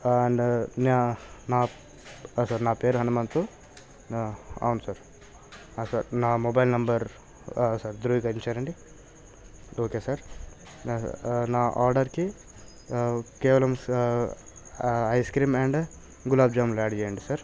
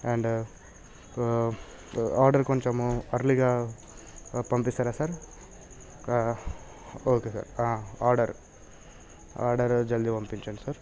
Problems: none marked